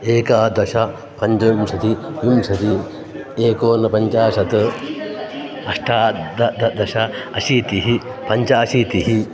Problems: background sounds at intervals